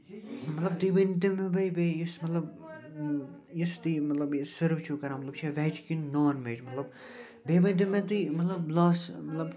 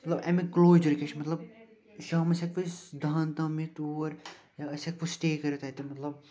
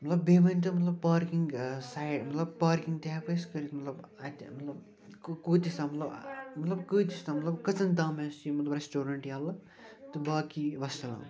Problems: constant background noise, continuous background conversations